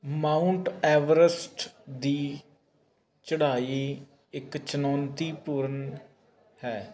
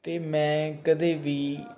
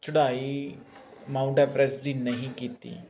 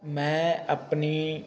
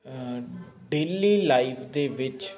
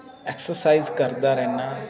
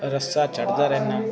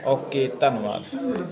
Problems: constant background noise